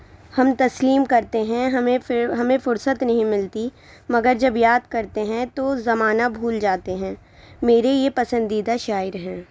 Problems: constant background noise